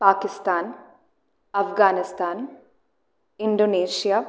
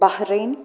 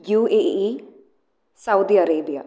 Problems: none marked